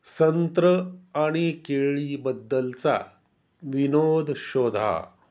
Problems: constant background noise